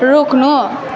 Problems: continuous background conversations